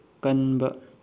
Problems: low volume